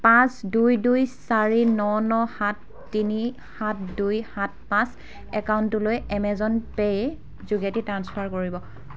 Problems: background sounds at intervals, background conversations at intervals